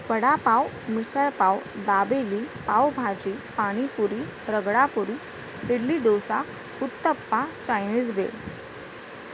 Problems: constant background noise